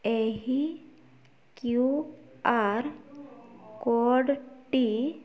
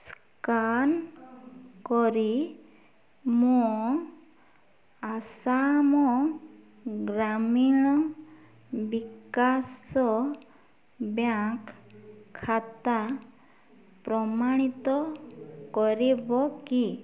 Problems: none marked